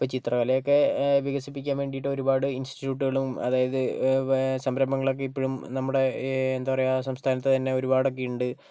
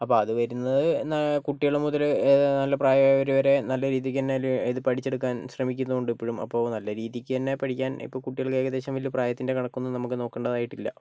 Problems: none marked